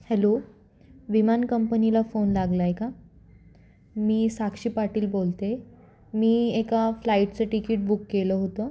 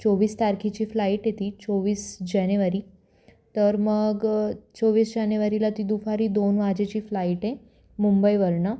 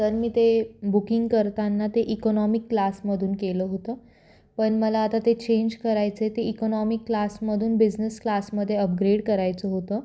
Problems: constant background noise